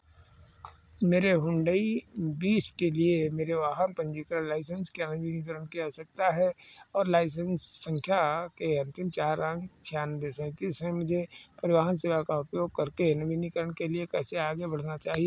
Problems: background sounds at intervals